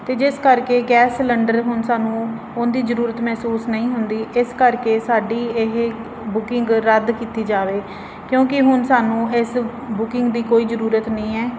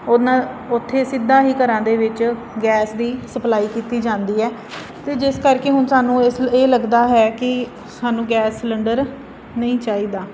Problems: constant background noise